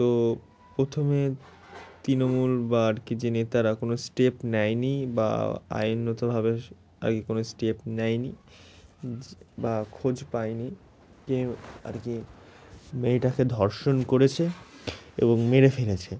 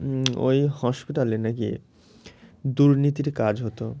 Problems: constant background noise